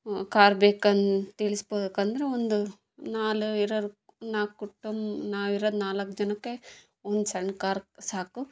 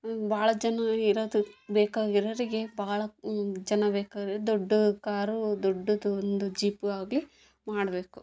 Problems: background sounds at intervals